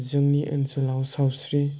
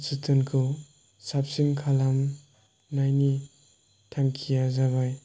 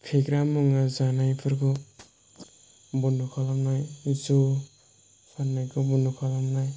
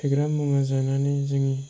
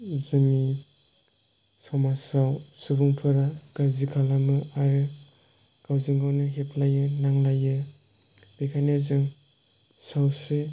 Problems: background sounds at intervals